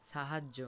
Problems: none marked